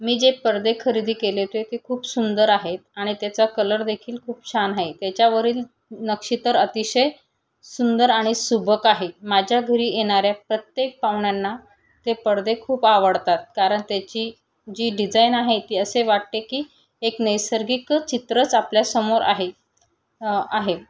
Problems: none marked